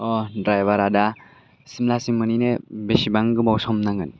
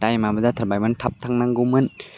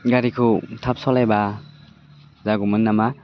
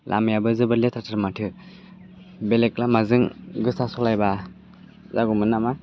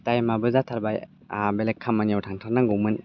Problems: constant background noise